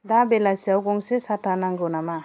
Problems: background conversations at intervals